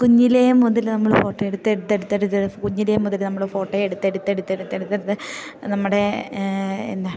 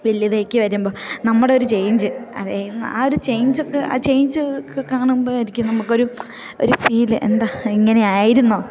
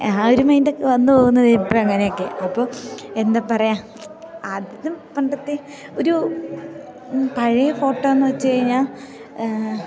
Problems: none marked